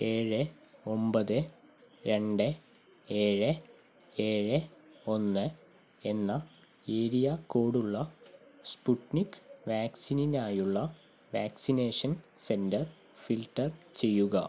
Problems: none marked